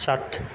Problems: constant background noise